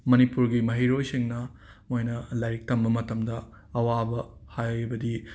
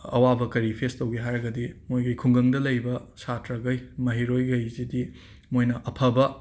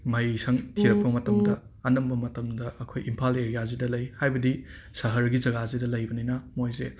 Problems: background sounds at intervals